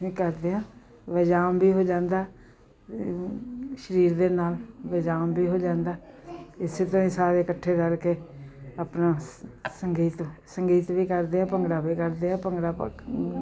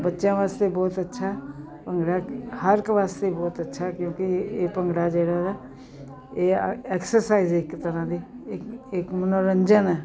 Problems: none marked